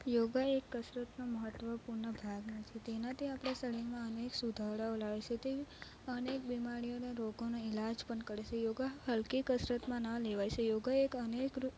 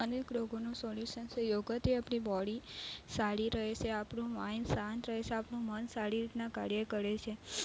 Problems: none marked